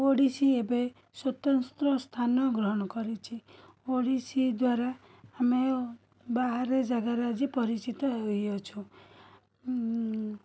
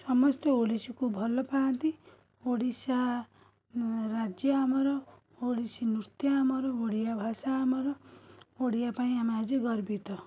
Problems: continuous background conversations